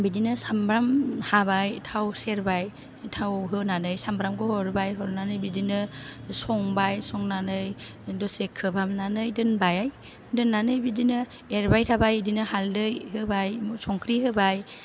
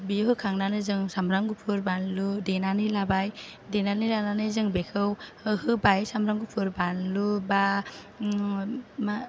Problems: none marked